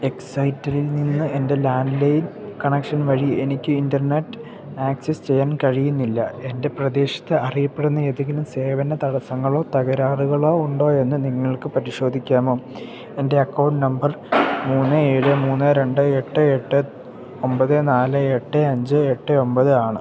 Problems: background sounds at intervals